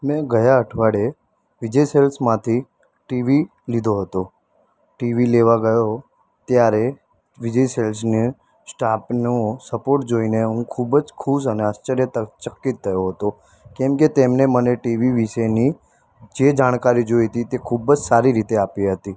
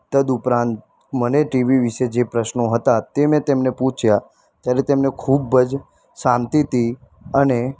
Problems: constant background noise